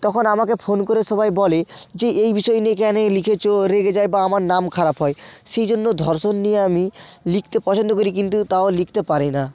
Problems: none marked